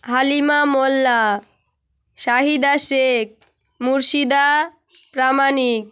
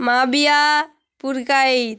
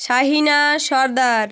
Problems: none marked